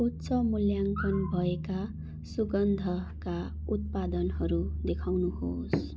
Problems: constant background noise